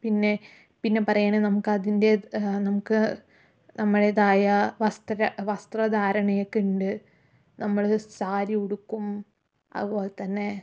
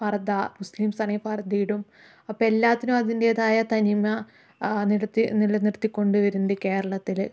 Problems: none marked